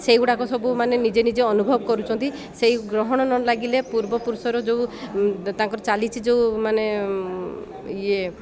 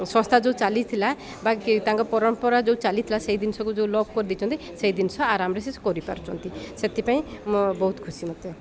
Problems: none marked